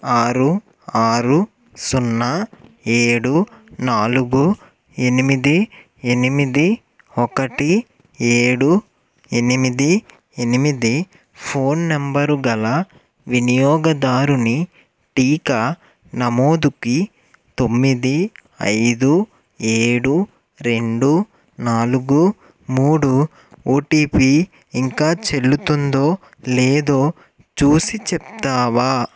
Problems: none marked